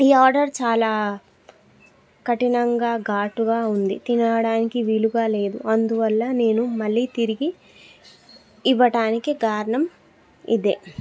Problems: background sounds at intervals